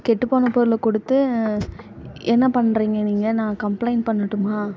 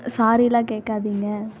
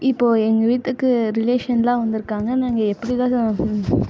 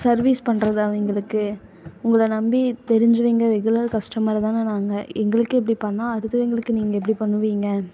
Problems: background sounds at intervals